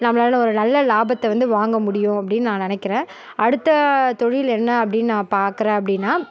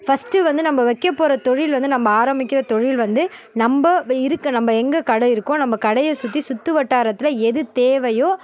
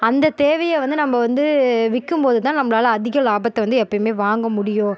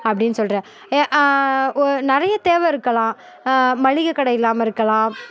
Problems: none marked